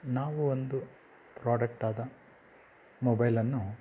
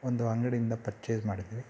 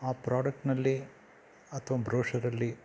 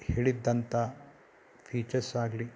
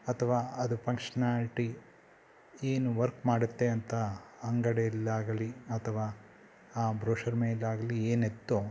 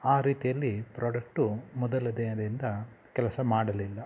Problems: background sounds at intervals